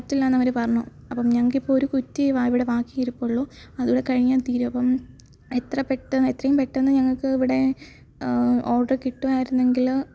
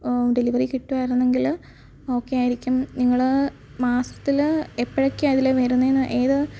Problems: background sounds at intervals